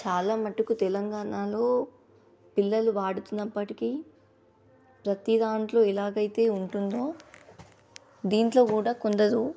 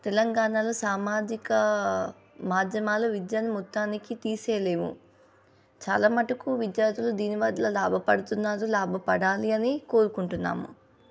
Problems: background sounds at intervals